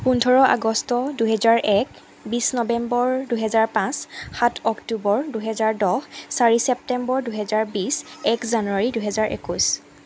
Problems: none marked